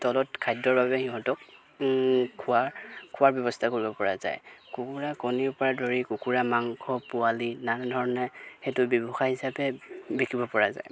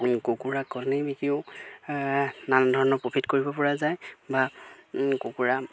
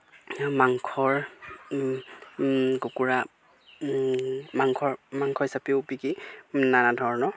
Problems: background sounds at intervals